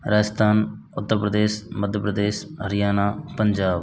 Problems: none marked